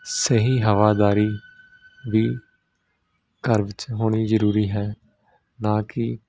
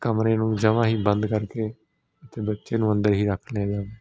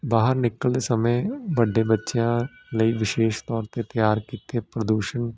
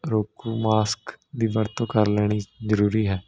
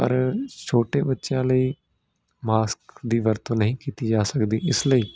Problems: none marked